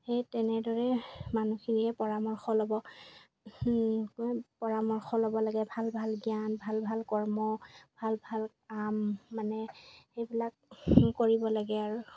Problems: background sounds at intervals